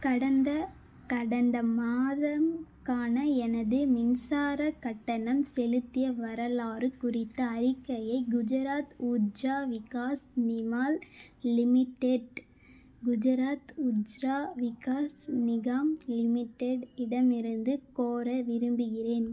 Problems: none marked